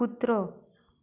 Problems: low volume